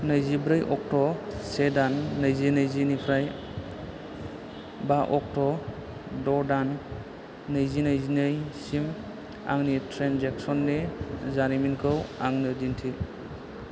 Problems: none marked